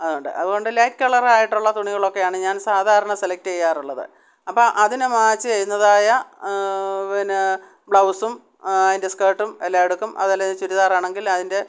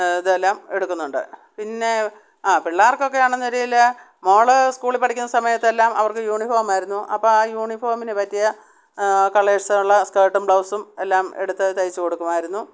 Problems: none marked